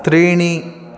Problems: continuous background conversations